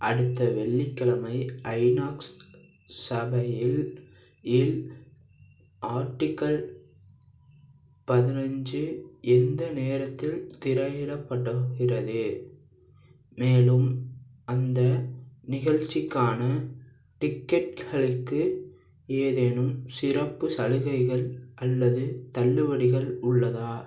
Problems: background sounds at intervals